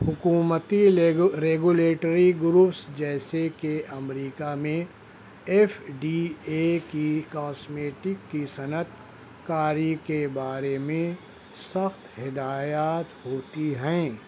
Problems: constant background noise